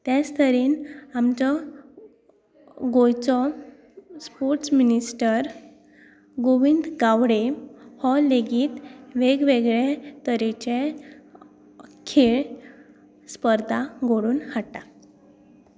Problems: constant background noise